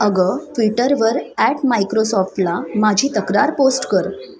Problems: constant background noise, continuous background conversations